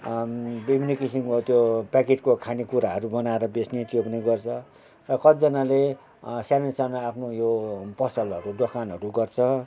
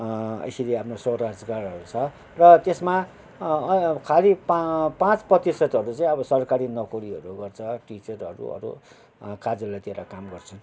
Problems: background sounds at intervals